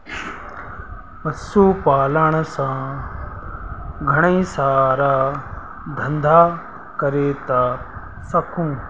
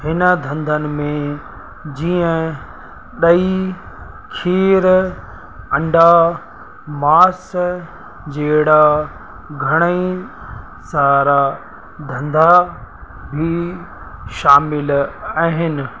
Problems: constant background noise, echo